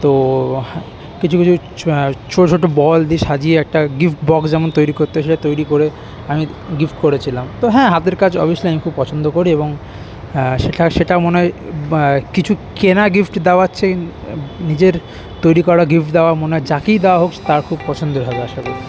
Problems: background sounds at intervals, continuous background conversations